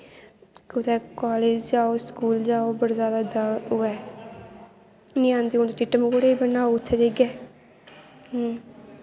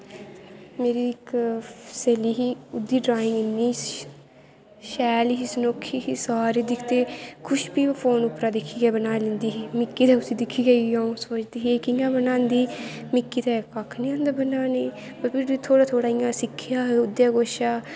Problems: constant background noise